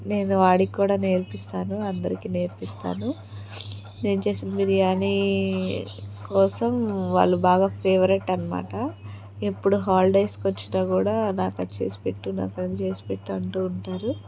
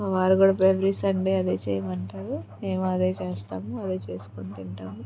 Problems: continuous background conversations